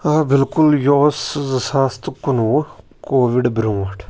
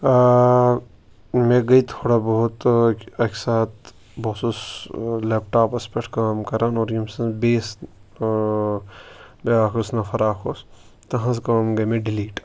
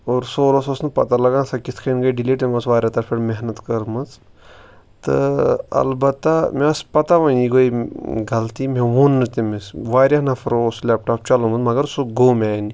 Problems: none marked